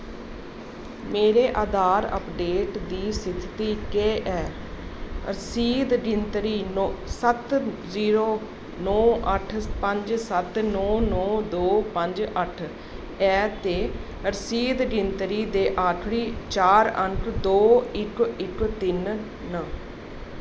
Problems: constant background noise